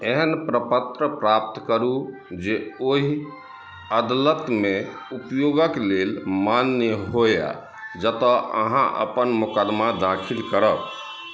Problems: background sounds at intervals